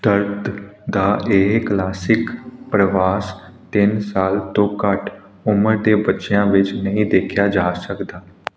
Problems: none marked